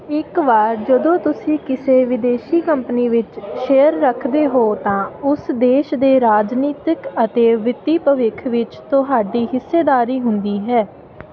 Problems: constant background noise